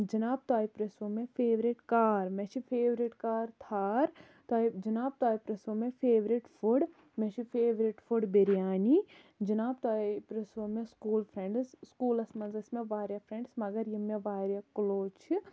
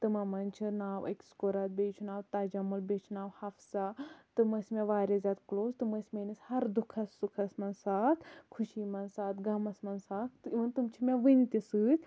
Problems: constant background noise